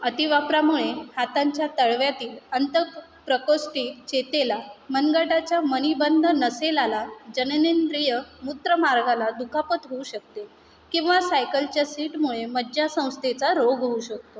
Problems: none marked